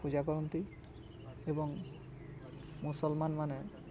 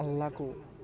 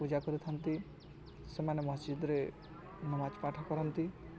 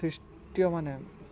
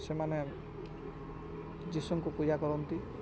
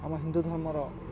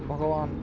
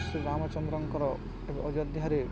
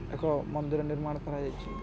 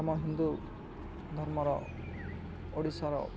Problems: none marked